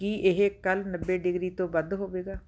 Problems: none marked